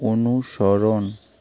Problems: constant background noise